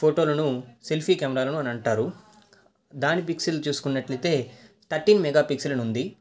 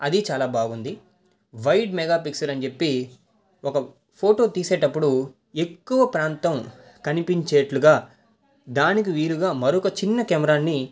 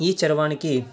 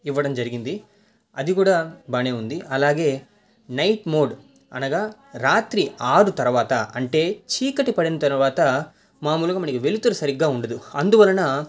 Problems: background conversations at intervals